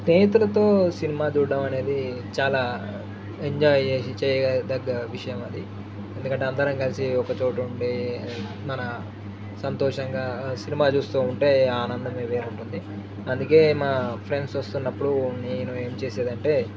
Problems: background sounds at intervals, background conversations at intervals, low volume